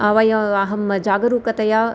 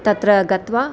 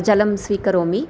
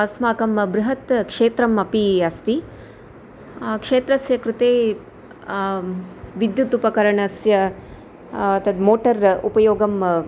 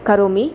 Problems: none marked